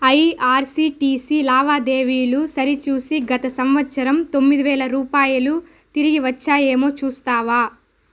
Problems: none marked